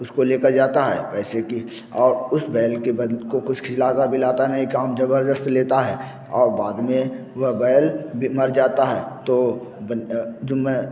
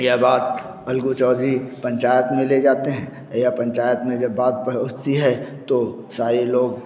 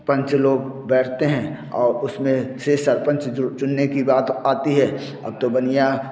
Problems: constant background noise